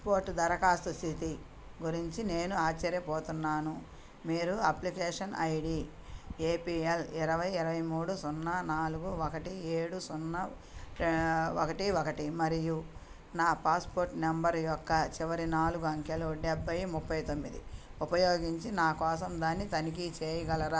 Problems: none marked